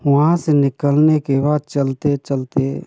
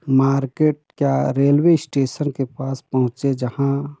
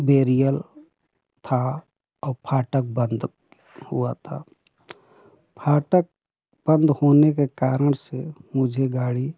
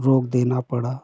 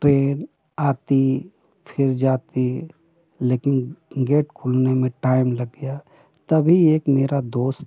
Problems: constant background noise